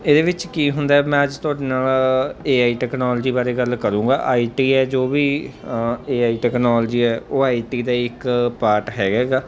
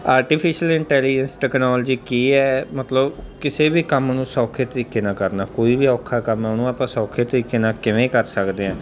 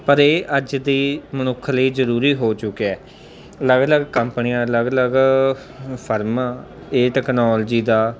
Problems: constant background noise